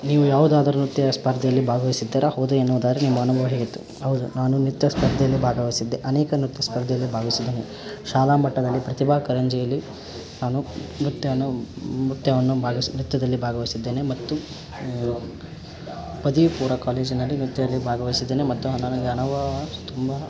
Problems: background sounds at intervals